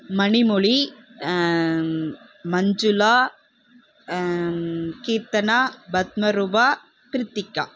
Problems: constant background noise